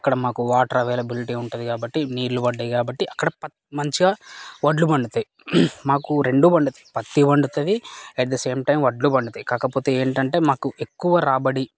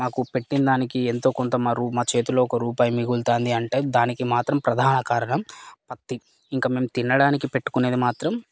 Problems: constant background noise, background conversations at intervals